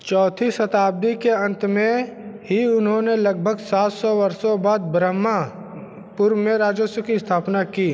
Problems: constant background noise